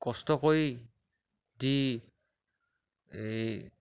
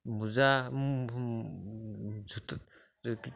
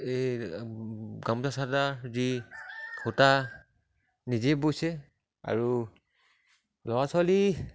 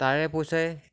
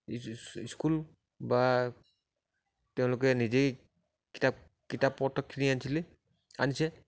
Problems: none marked